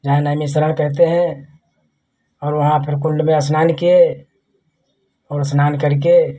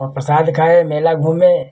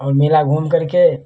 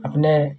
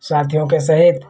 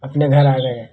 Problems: none marked